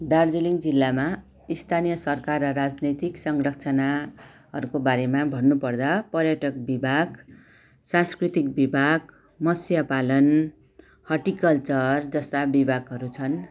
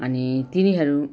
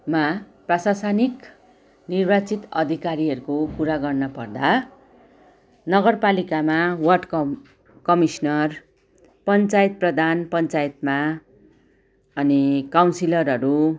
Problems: background sounds at intervals, background conversations at intervals